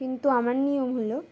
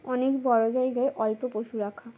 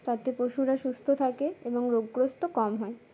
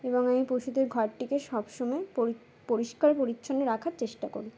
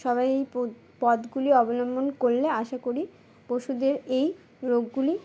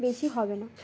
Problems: background sounds at intervals, background conversations at intervals